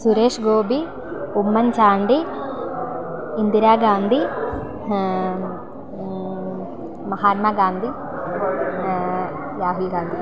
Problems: constant background noise